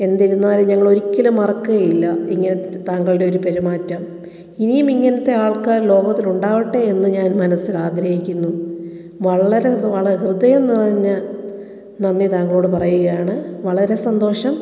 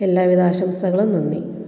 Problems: echo